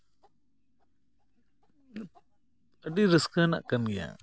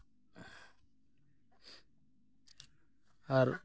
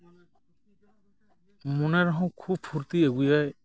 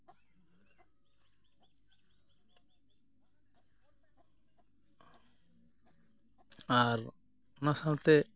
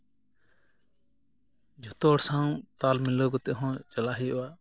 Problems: none marked